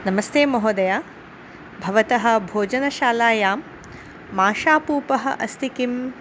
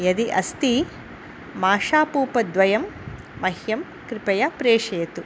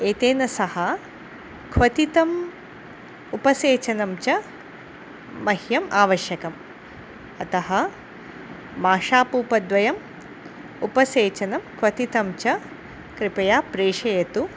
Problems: constant background noise